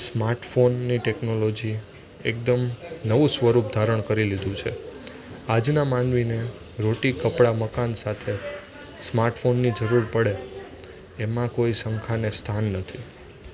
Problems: none marked